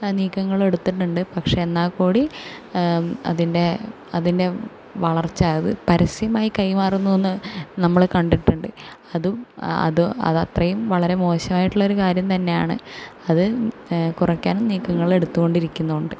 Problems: none marked